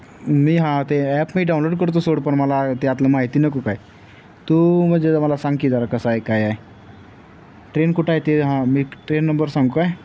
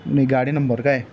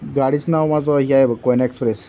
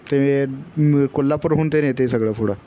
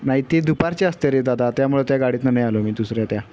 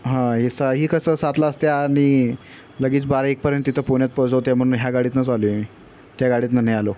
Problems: none marked